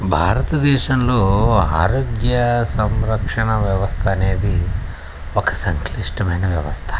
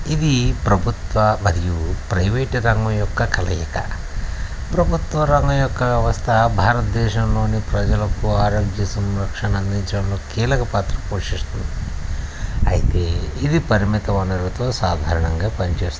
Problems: constant background noise